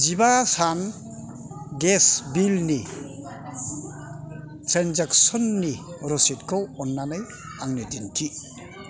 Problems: constant background noise